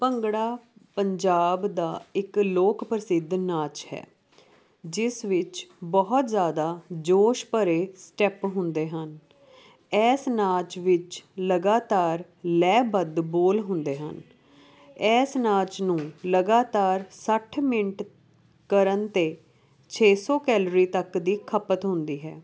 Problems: background sounds at intervals